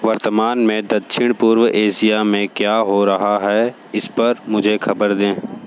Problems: constant background noise